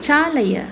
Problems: constant background noise